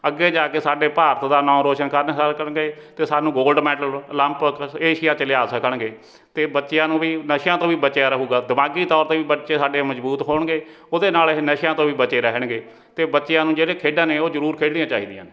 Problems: background sounds at intervals